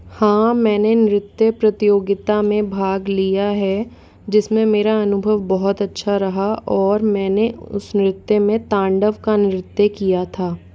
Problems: background conversations at intervals